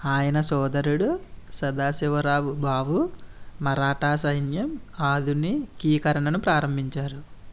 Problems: none marked